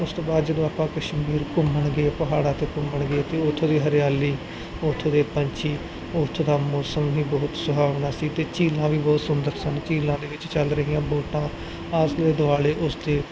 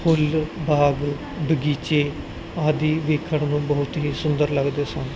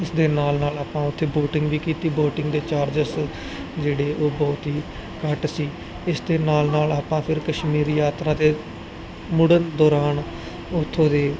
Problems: background sounds at intervals, background conversations at intervals